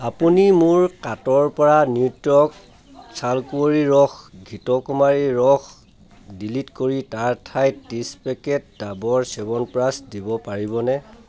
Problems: constant background noise, continuous background conversations